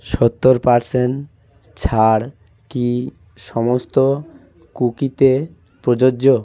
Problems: background conversations at intervals